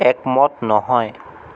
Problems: none marked